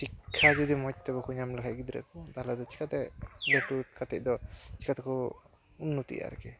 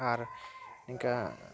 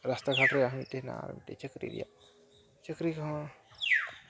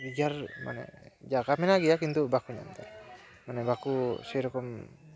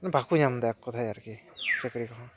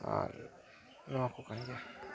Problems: none marked